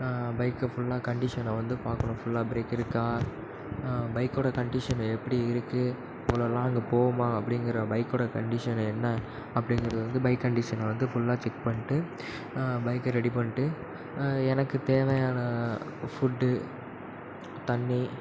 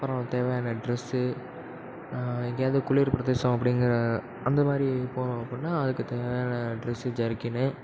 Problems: background sounds at intervals, echo